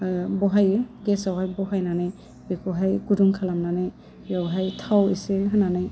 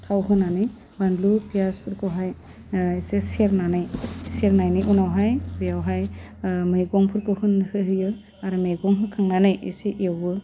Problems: low volume